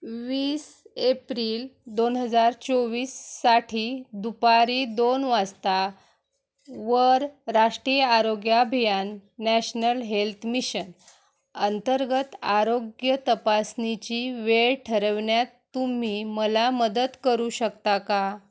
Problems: none marked